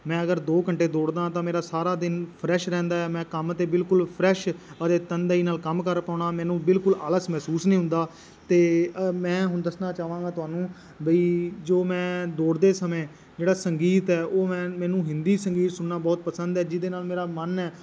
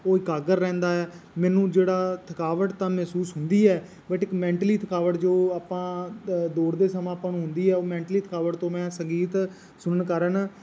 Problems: constant background noise